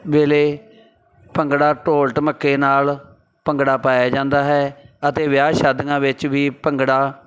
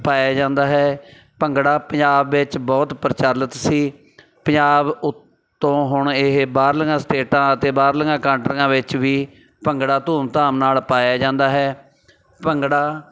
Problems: background sounds at intervals, background conversations at intervals